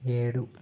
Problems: low volume